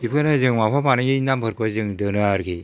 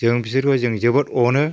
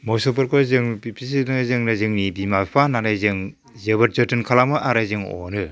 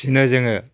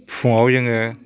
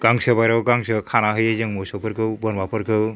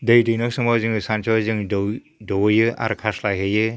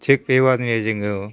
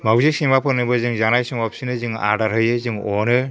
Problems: none marked